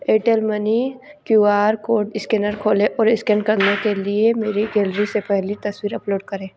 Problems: background sounds at intervals